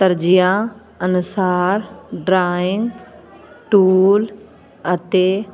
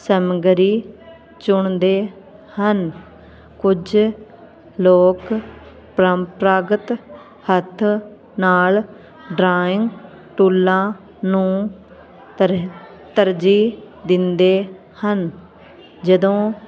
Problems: constant background noise